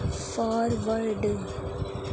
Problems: constant background noise, low volume